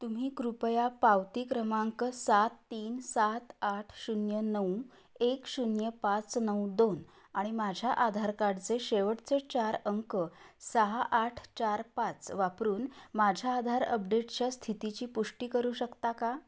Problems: none marked